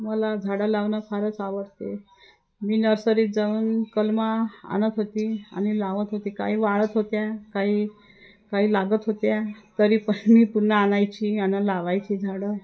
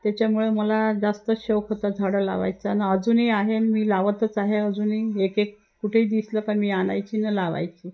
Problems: constant background noise, continuous background conversations